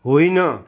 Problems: none marked